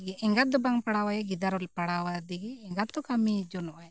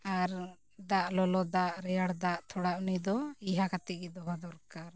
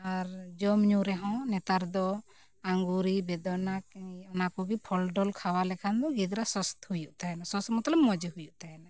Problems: none marked